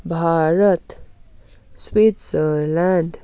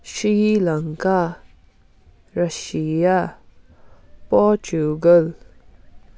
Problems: constant background noise